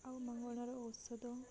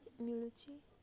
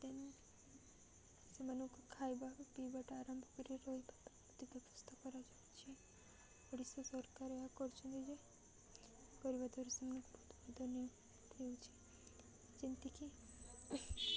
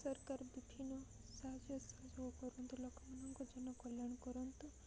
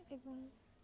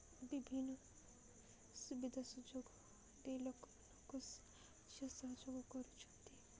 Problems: none marked